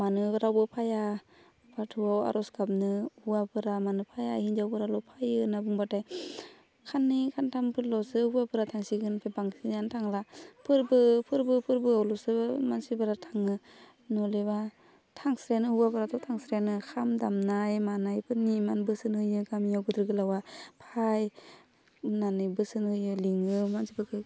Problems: constant background noise